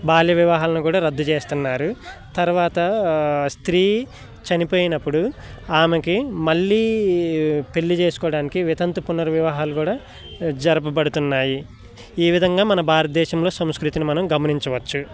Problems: none marked